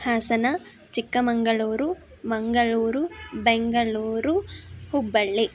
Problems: none marked